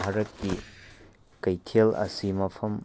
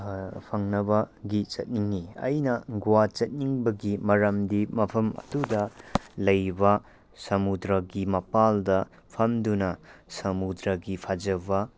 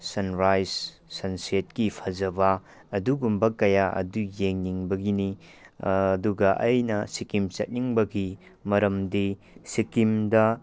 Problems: background sounds at intervals